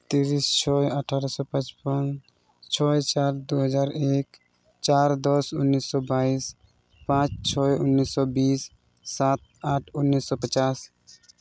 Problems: none marked